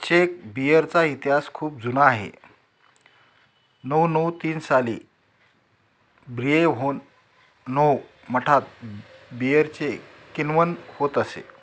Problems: background sounds at intervals